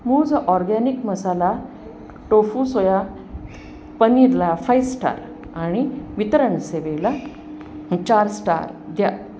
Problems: constant background noise